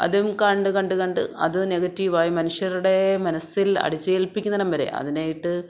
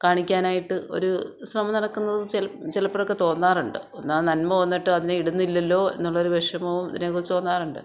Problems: none marked